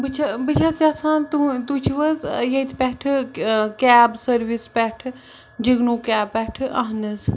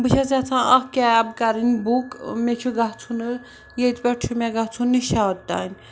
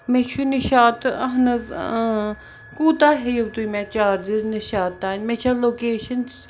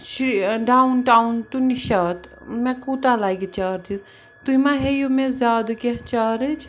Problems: background sounds at intervals, background conversations at intervals